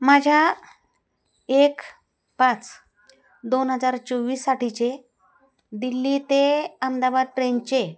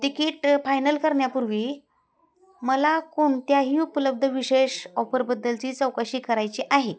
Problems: background sounds at intervals, background conversations at intervals